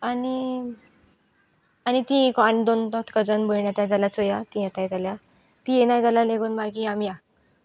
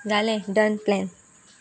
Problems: background sounds at intervals